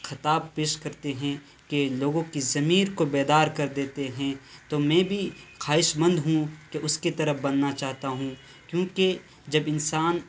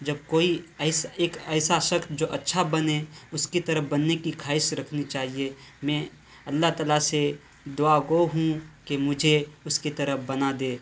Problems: constant background noise